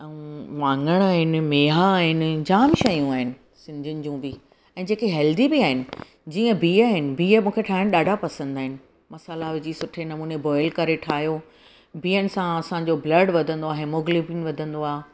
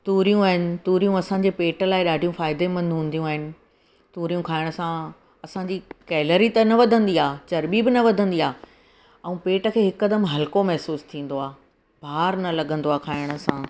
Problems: background sounds at intervals